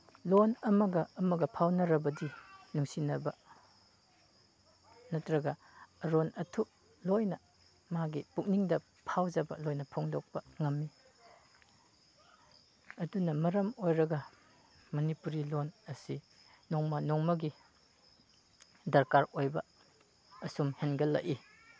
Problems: background conversations at intervals